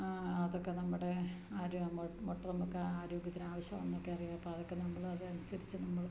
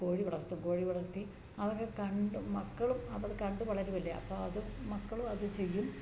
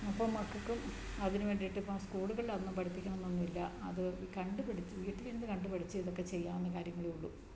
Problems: low volume